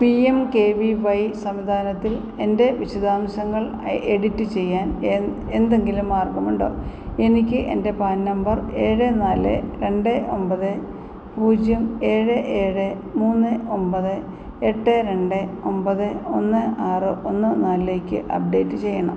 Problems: constant background noise